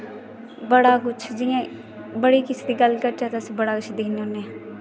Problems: constant background noise